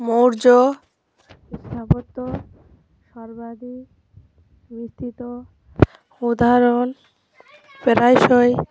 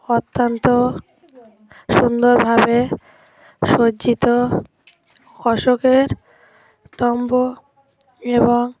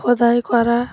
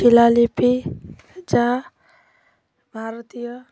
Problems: constant background noise